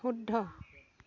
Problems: background conversations at intervals